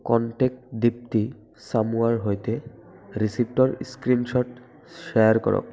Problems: continuous background conversations